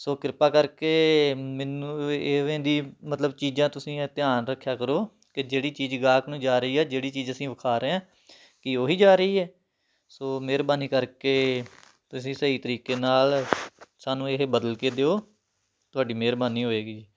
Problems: background sounds at intervals